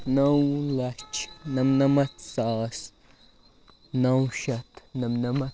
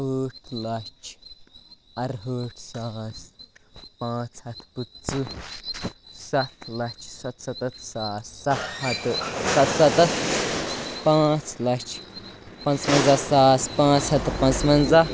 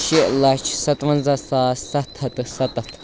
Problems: constant background noise